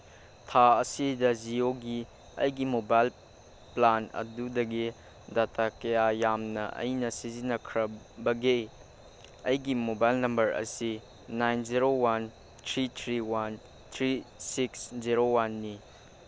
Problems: none marked